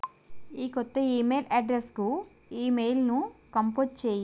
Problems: constant background noise